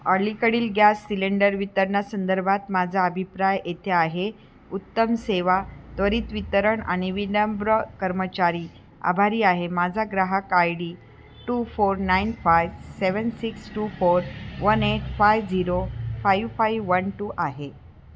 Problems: constant background noise